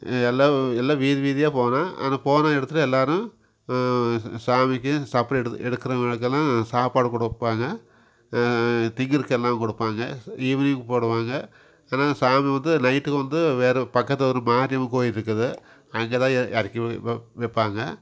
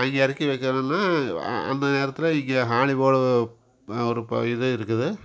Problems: background sounds at intervals